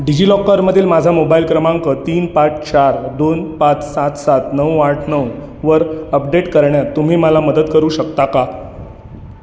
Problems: none marked